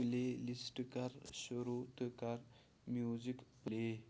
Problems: constant background noise